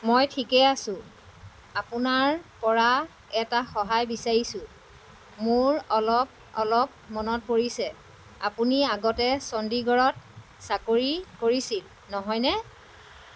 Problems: constant background noise